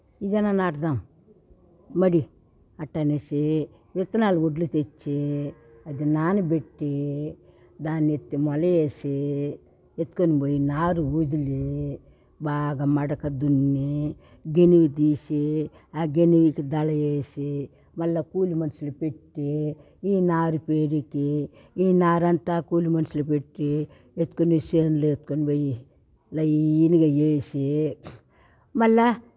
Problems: background sounds at intervals